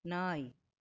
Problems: none marked